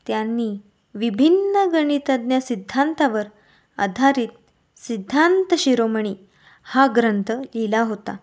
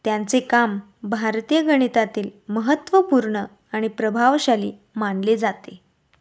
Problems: none marked